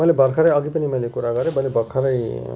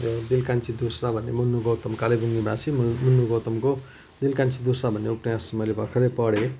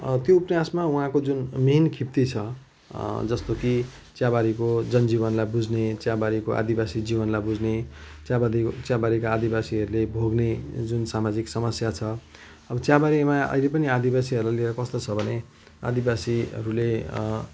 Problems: background sounds at intervals